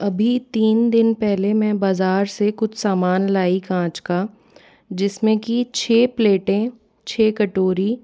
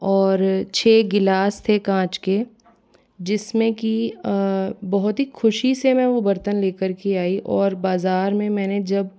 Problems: none marked